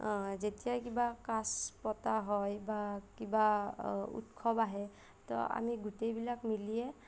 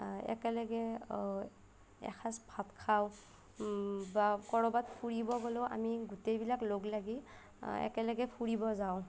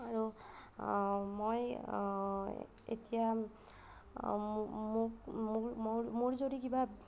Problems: none marked